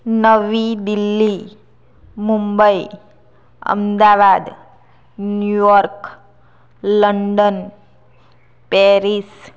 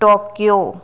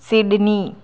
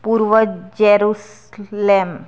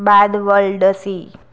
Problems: none marked